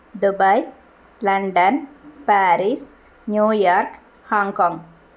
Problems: constant background noise